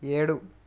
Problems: none marked